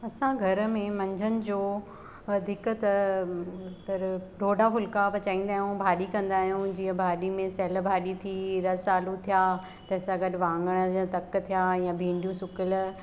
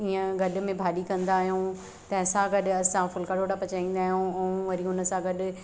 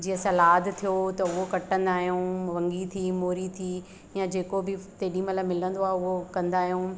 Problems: constant background noise, echo